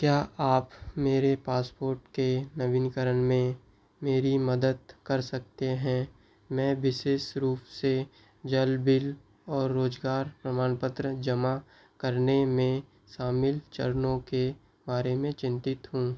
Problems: background sounds at intervals